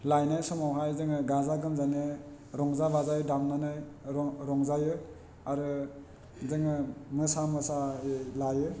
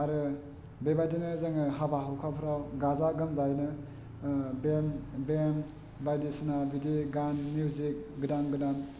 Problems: none marked